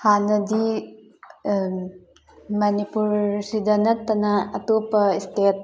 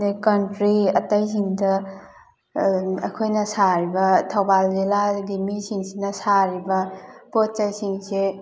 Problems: background sounds at intervals, background conversations at intervals